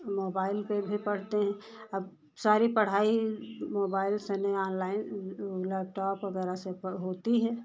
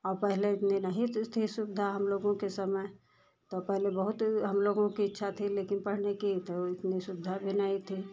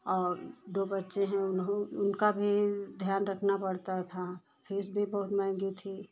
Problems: none marked